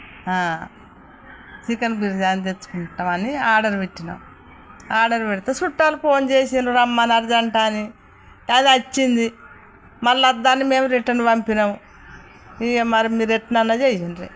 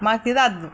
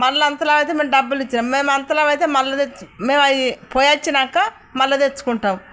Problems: none marked